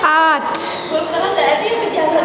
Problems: background sounds at intervals, background conversations at intervals